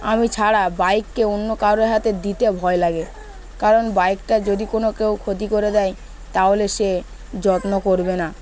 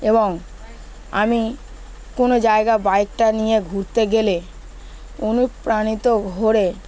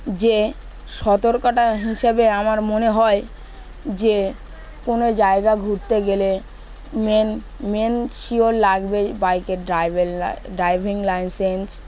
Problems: background sounds at intervals, background conversations at intervals